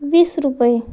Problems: background sounds at intervals